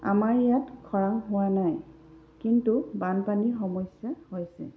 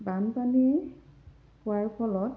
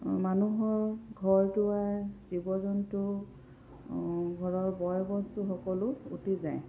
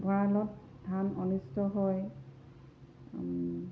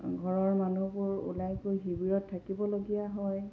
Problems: none marked